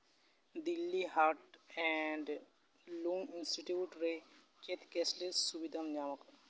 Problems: background sounds at intervals